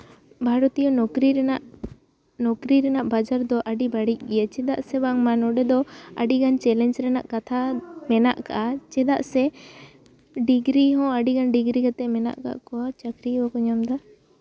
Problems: constant background noise